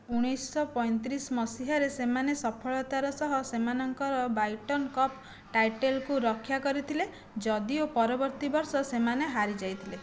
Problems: background sounds at intervals